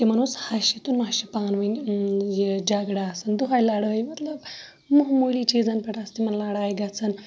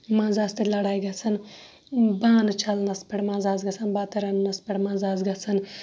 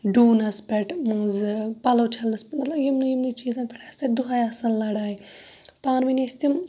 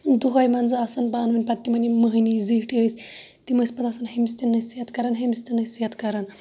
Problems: background sounds at intervals, background conversations at intervals